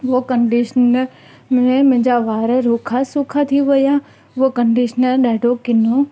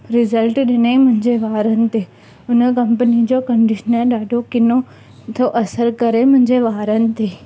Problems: constant background noise